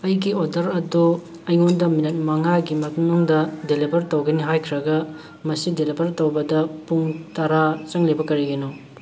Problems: constant background noise